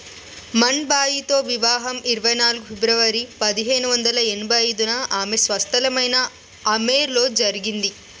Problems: none marked